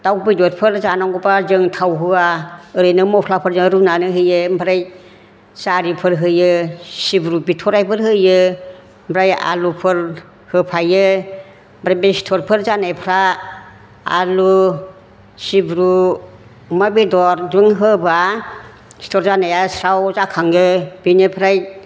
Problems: none marked